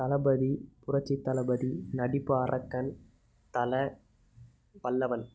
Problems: low volume